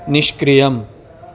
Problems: constant background noise